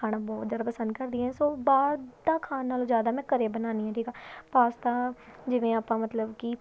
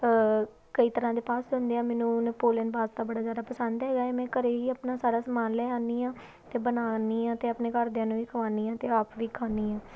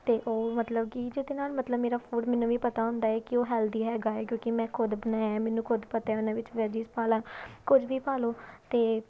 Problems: none marked